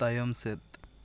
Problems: constant background noise